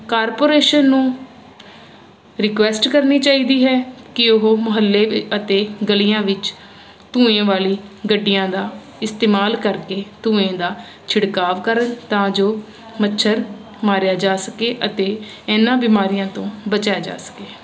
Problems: constant background noise